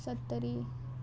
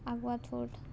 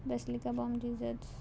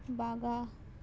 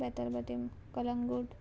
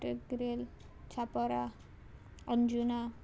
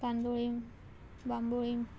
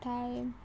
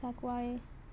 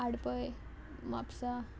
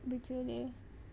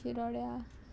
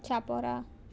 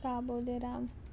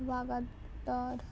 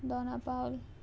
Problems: constant background noise, background conversations at intervals